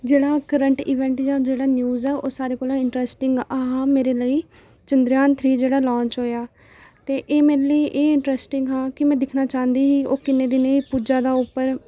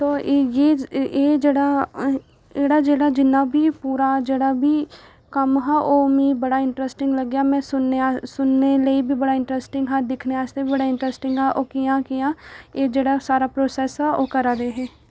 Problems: none marked